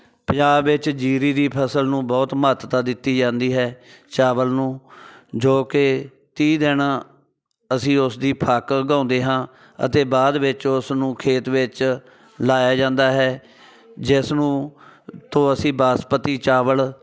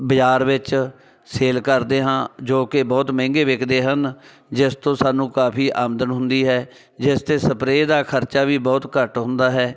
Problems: constant background noise